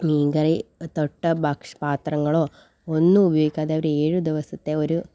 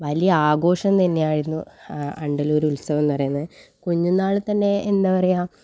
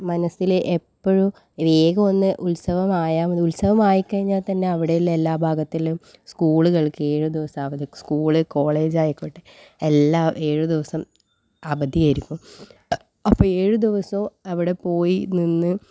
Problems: none marked